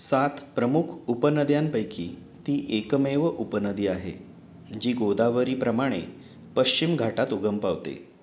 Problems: none marked